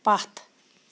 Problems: constant background noise